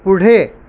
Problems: none marked